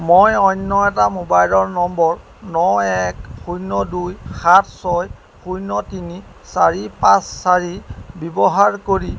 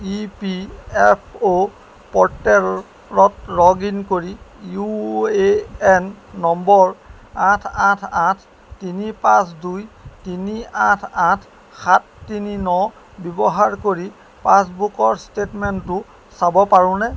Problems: background sounds at intervals